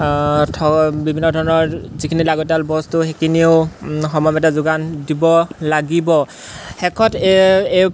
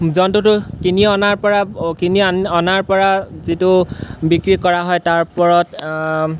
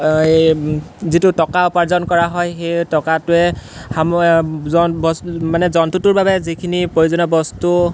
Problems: none marked